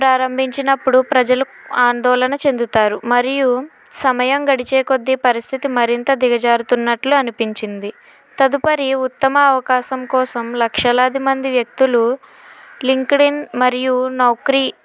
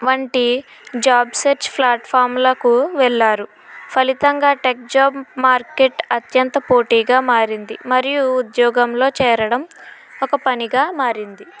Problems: constant background noise